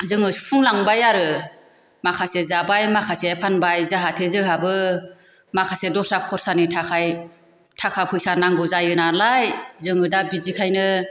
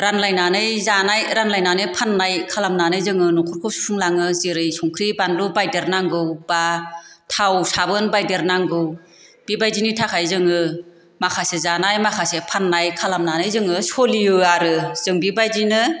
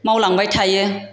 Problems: constant background noise